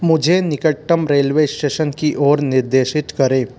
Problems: none marked